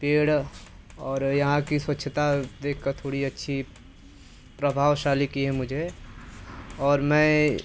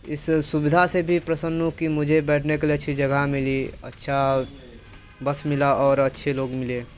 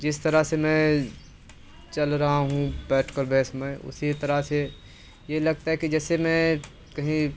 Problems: constant background noise